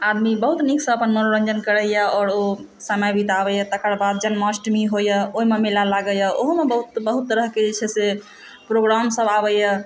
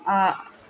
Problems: constant background noise, background conversations at intervals